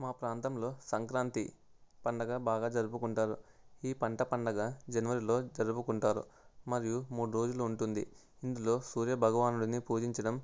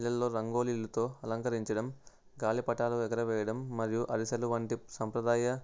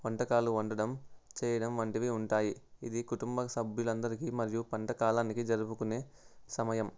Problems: none marked